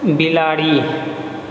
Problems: background conversations at intervals